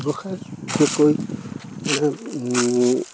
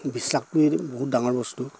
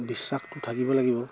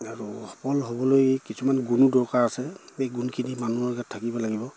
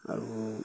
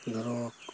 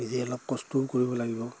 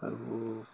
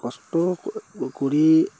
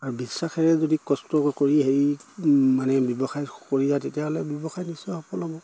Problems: none marked